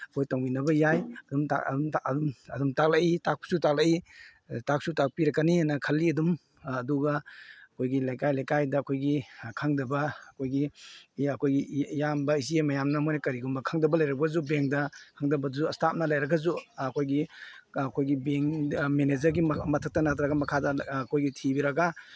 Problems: none marked